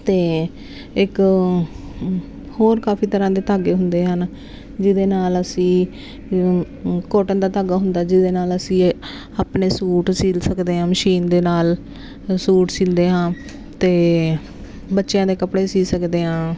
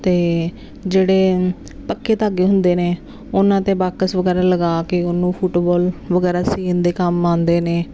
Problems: constant background noise